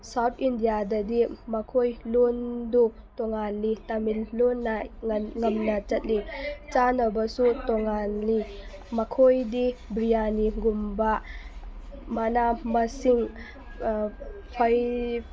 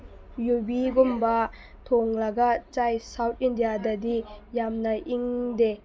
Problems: background sounds at intervals, background conversations at intervals